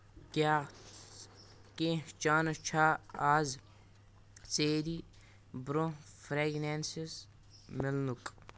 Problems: none marked